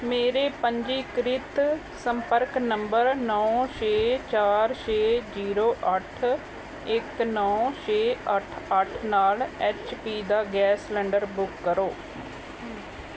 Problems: none marked